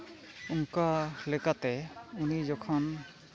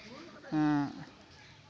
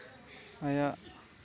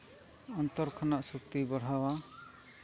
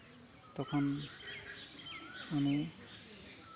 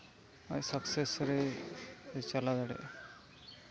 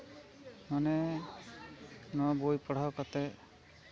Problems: constant background noise, continuous background conversations